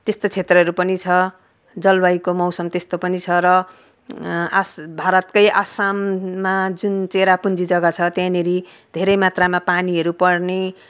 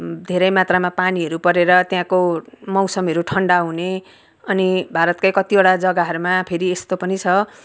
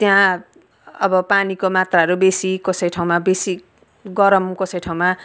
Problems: background sounds at intervals